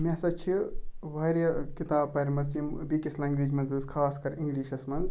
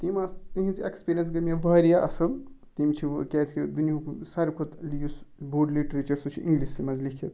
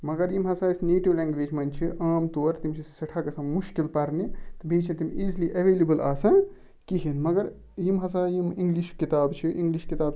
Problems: background sounds at intervals